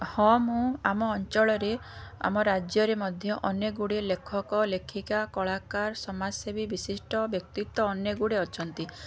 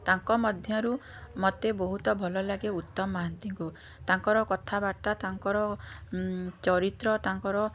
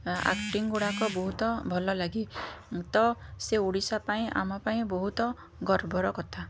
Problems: background sounds at intervals